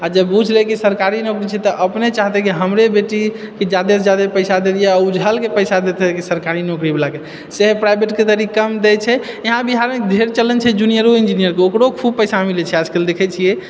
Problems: none marked